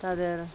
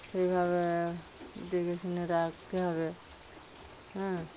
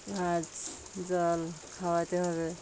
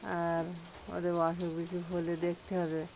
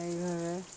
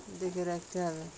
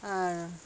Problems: background sounds at intervals